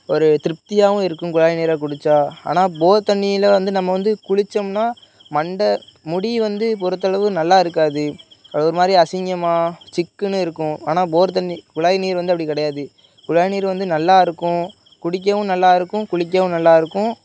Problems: background sounds at intervals, background conversations at intervals